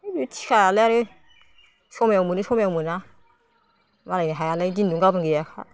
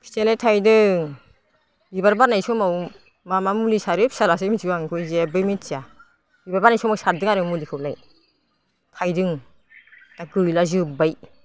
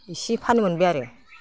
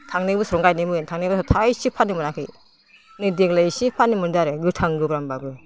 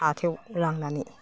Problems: low volume